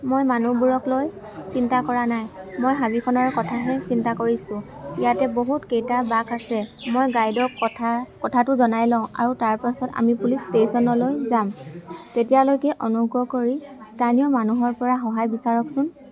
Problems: background sounds at intervals, background conversations at intervals